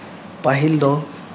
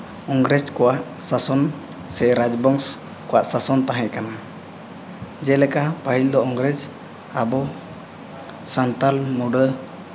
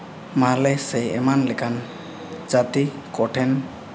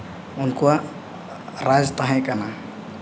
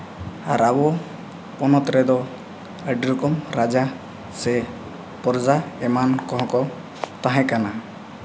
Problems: constant background noise